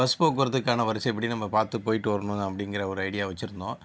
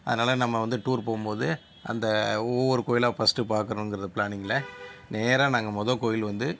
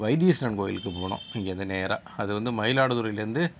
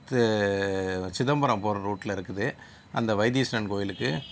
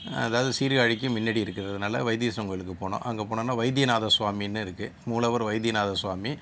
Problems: none marked